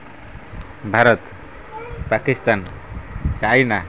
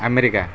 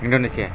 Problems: constant background noise, background conversations at intervals